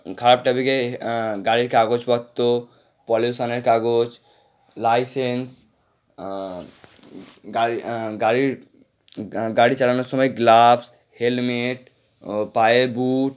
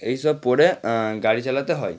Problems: none marked